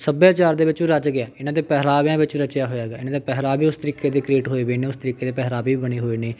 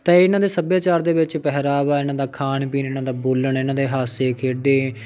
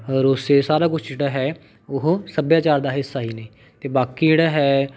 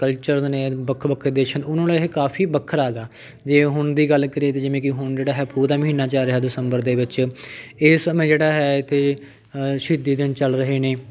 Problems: background conversations at intervals